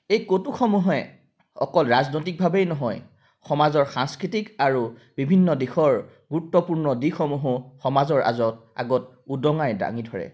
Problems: none marked